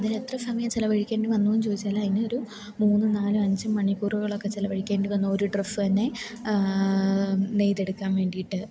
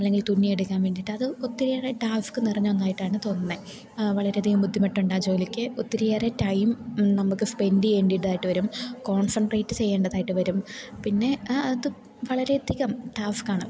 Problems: constant background noise, low volume